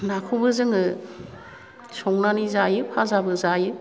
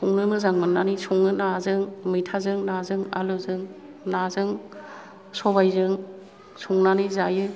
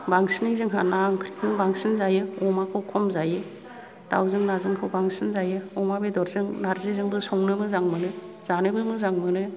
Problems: none marked